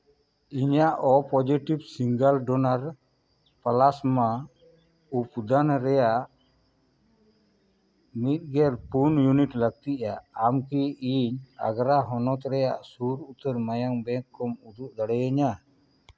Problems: none marked